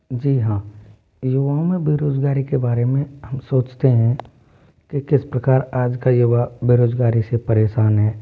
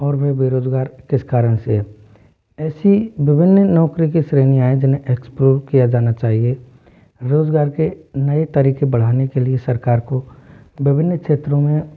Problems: none marked